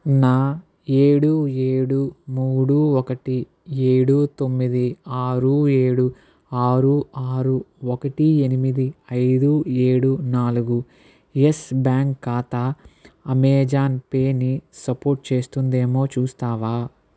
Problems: none marked